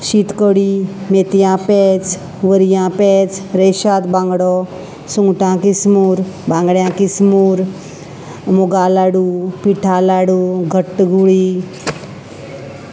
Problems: constant background noise, background conversations at intervals